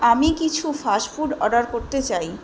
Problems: none marked